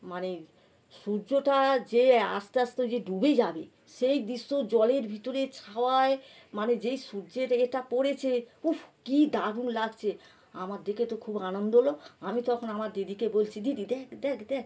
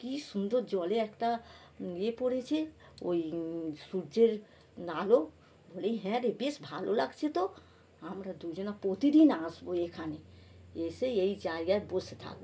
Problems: background sounds at intervals